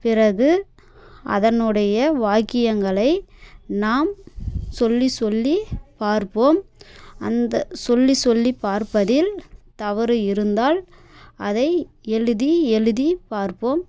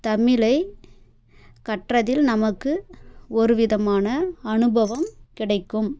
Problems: none marked